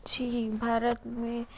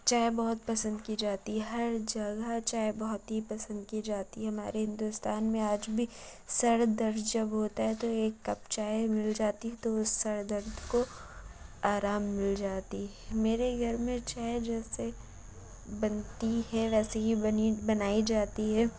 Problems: constant background noise, low volume